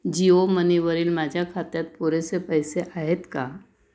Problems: background sounds at intervals